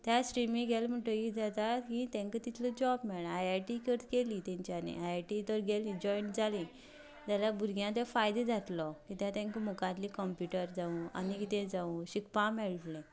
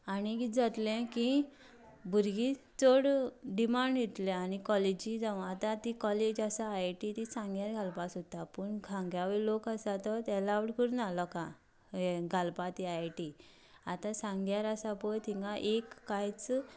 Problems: background sounds at intervals, background conversations at intervals